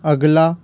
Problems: constant background noise